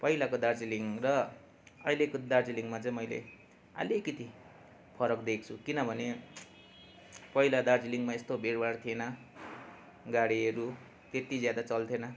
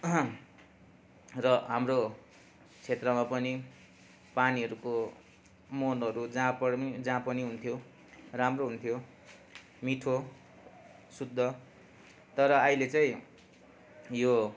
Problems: continuous background conversations